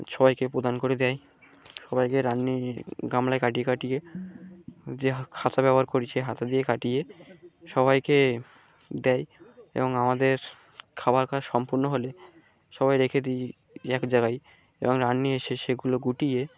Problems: background sounds at intervals